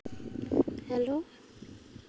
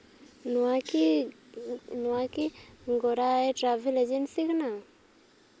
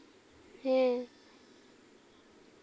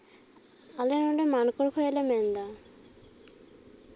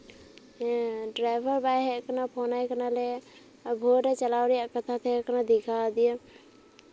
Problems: constant background noise, background conversations at intervals